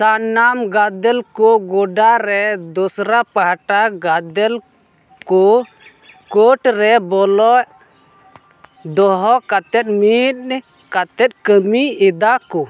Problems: constant background noise